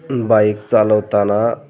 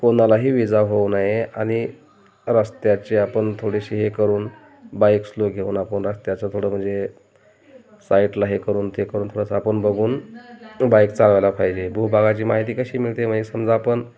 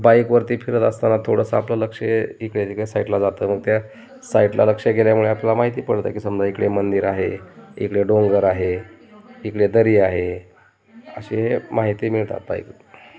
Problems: constant background noise, background conversations at intervals